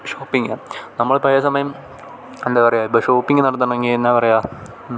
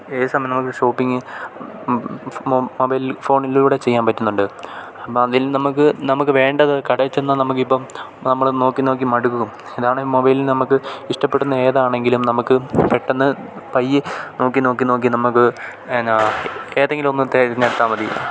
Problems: background sounds at intervals